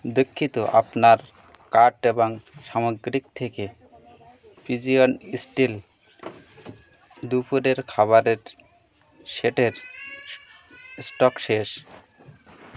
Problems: constant background noise